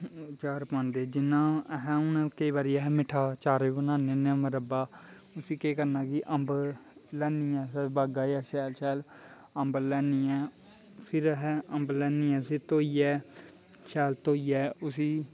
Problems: constant background noise